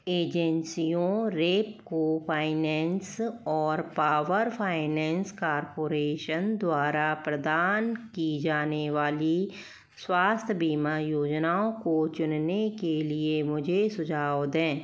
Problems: none marked